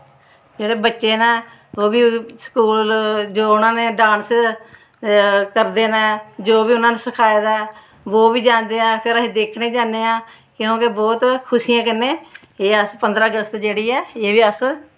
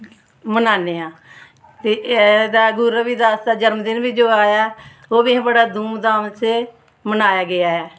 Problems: background sounds at intervals